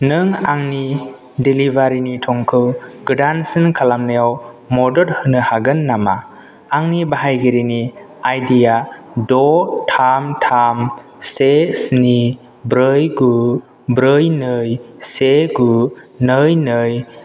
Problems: none marked